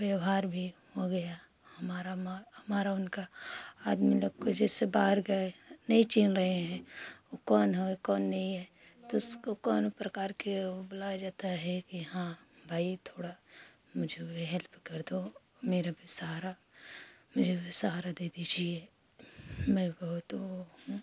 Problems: constant background noise